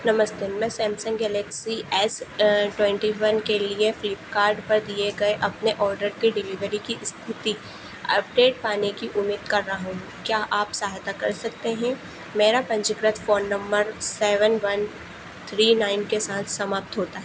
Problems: constant background noise